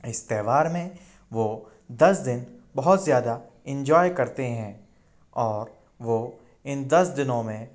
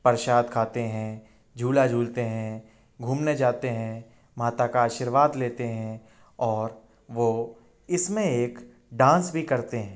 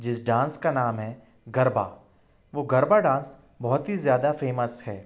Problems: constant background noise